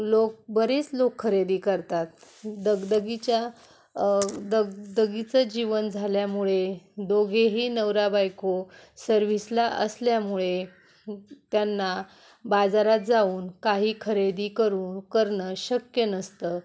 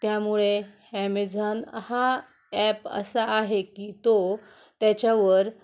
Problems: background sounds at intervals